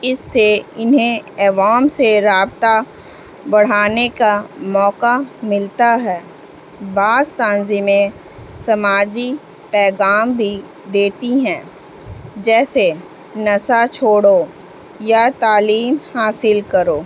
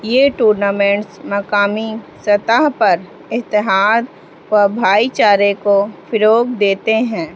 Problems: constant background noise